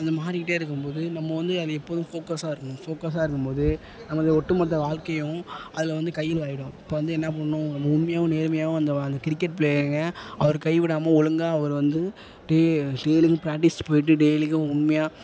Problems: constant background noise, low volume